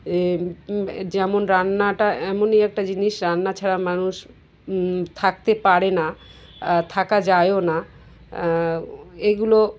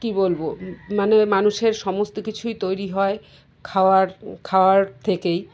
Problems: constant background noise, background conversations at intervals